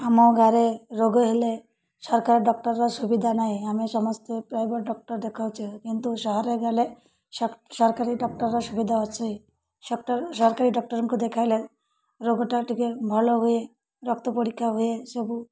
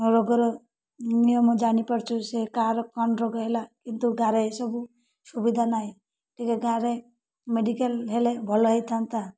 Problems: none marked